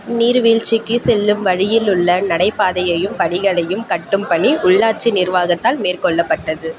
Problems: background sounds at intervals